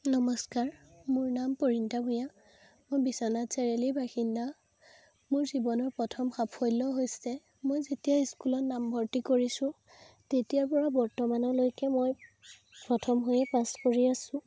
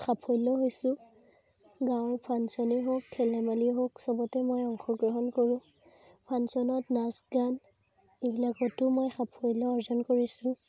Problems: constant background noise